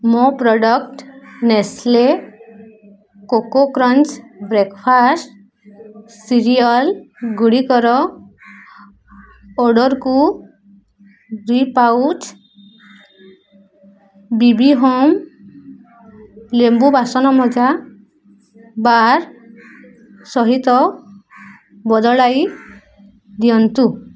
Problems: none marked